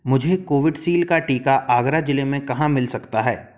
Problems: background sounds at intervals